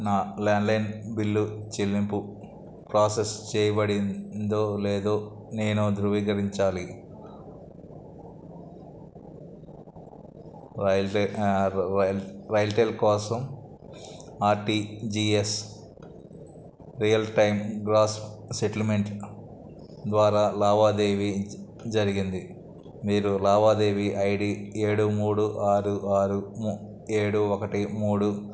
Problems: none marked